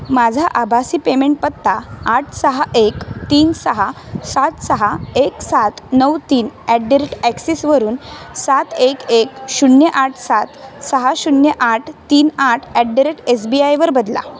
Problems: constant background noise, background conversations at intervals